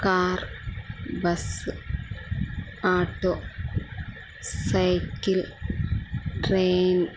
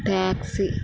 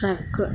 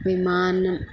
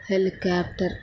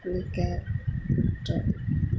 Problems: none marked